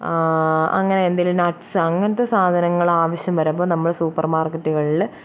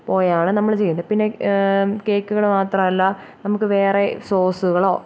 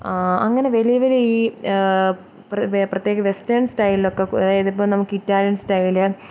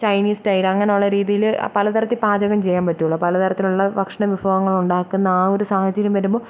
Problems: low volume